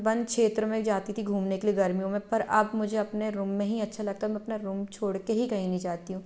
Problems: background sounds at intervals